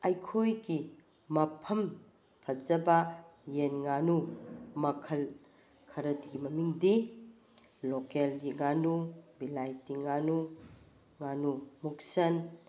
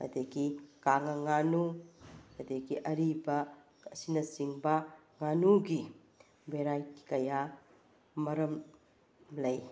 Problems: none marked